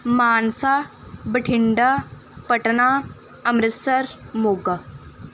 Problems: background sounds at intervals